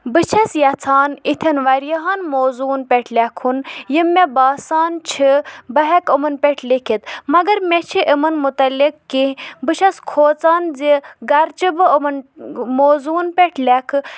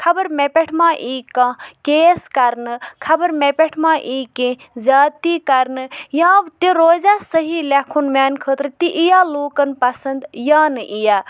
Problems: background sounds at intervals